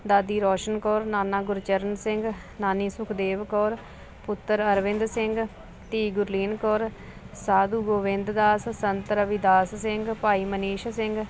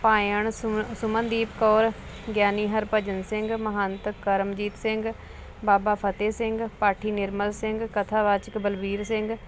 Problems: constant background noise